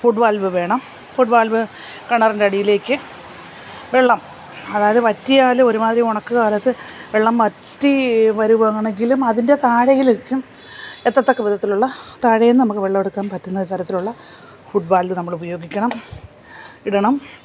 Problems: none marked